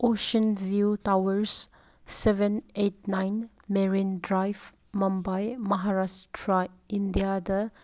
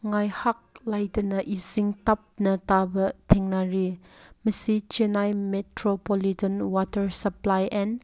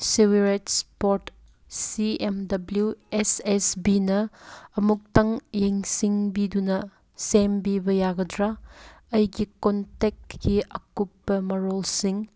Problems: background sounds at intervals